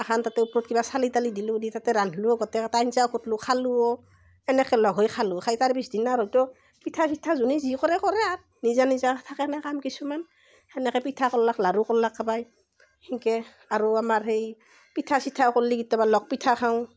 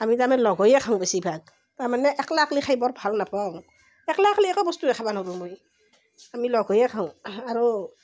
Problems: none marked